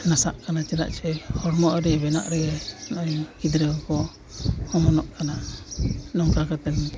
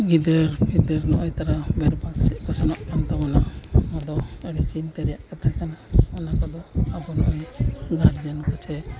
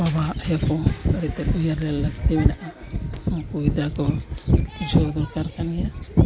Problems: constant background noise, low volume